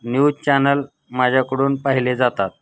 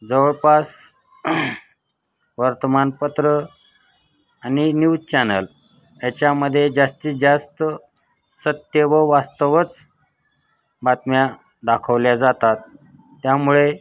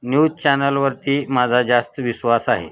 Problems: constant background noise, continuous background conversations